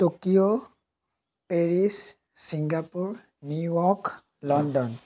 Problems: none marked